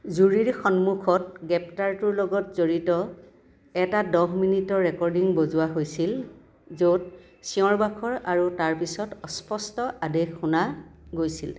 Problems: constant background noise